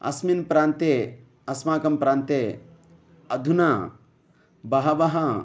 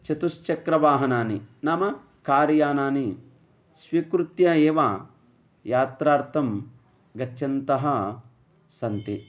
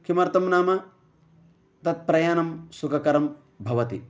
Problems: none marked